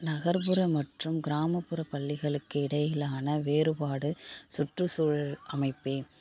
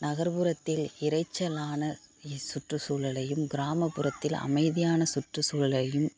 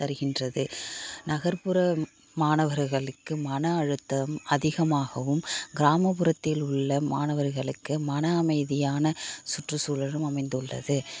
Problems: background sounds at intervals